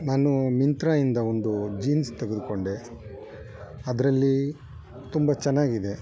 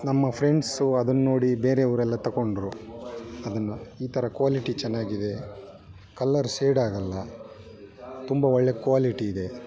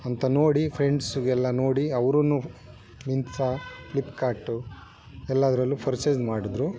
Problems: background sounds at intervals